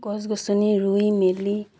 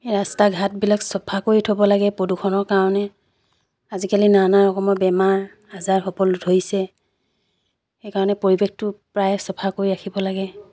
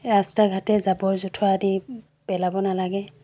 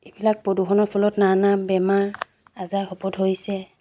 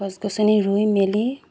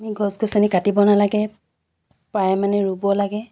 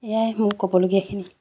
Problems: background sounds at intervals